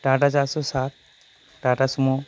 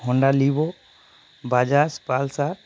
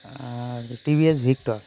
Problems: constant background noise